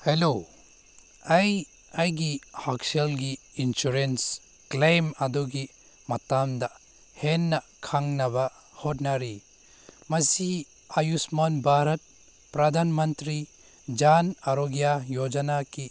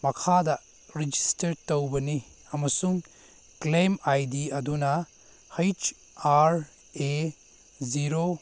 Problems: background sounds at intervals